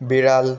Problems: continuous background conversations